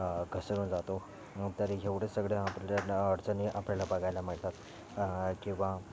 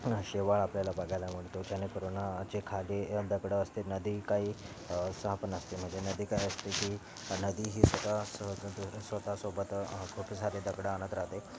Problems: none marked